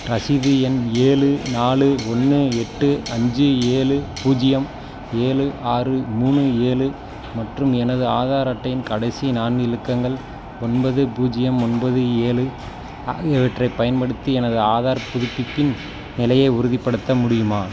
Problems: constant background noise